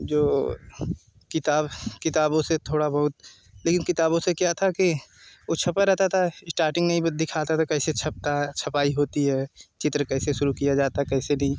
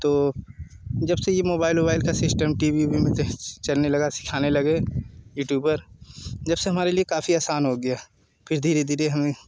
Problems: none marked